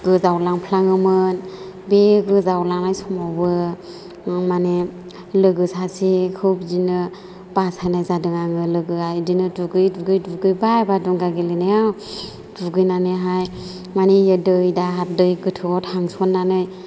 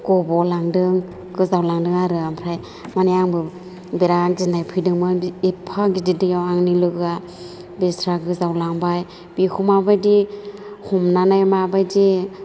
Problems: low volume